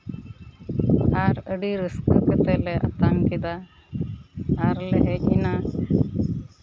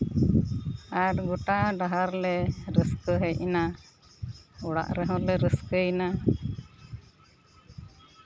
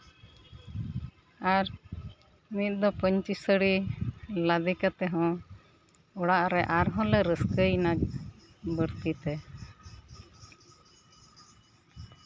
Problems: constant background noise